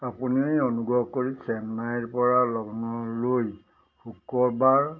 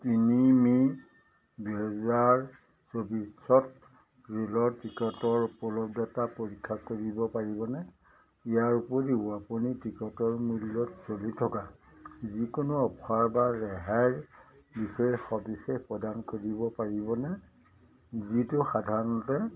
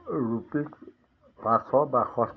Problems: none marked